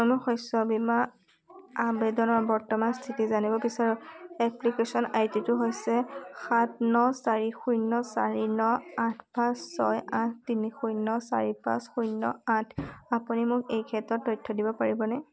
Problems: constant background noise, background conversations at intervals